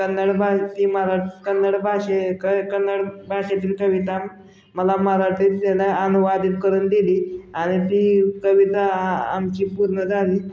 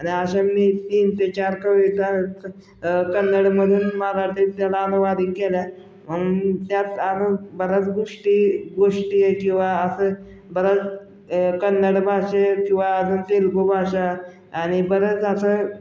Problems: constant background noise, continuous background conversations